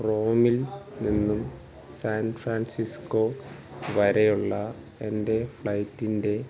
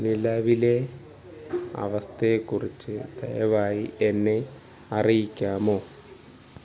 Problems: none marked